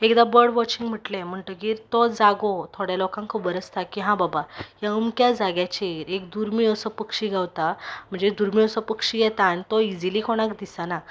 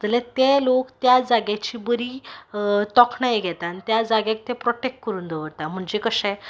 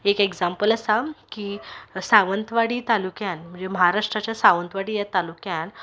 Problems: background sounds at intervals